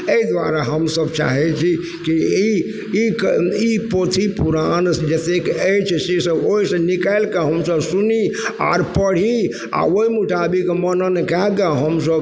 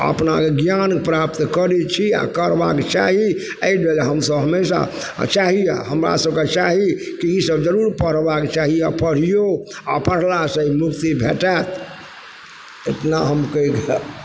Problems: constant background noise